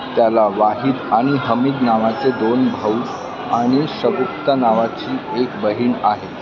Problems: constant background noise, continuous background conversations